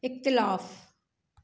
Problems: none marked